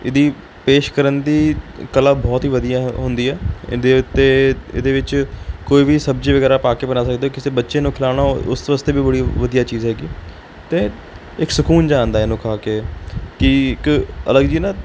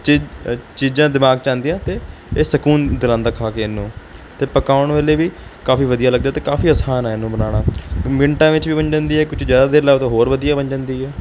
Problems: background sounds at intervals